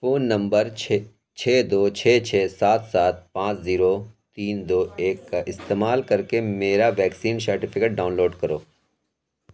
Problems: none marked